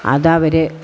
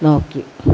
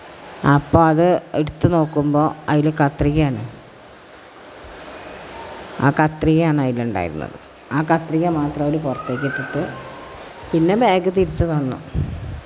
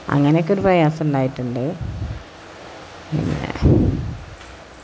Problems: constant background noise